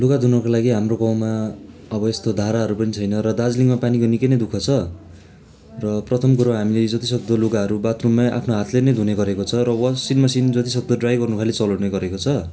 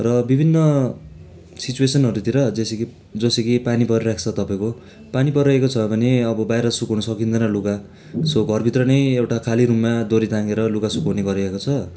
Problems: constant background noise